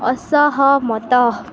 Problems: constant background noise